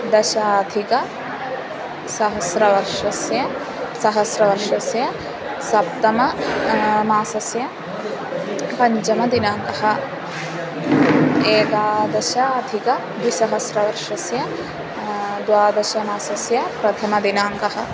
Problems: constant background noise